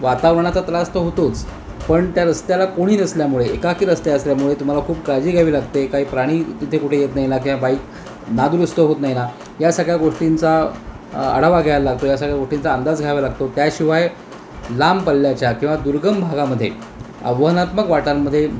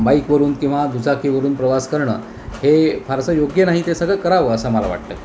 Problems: constant background noise